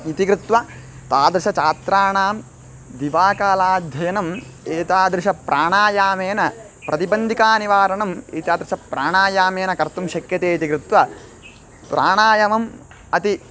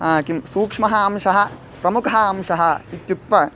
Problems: constant background noise